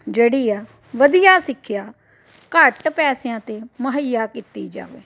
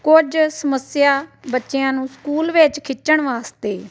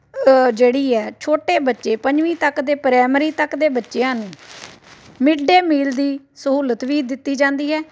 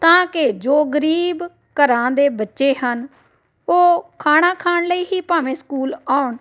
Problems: constant background noise